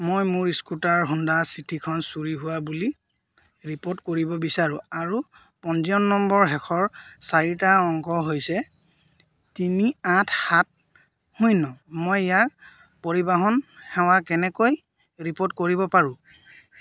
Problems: background sounds at intervals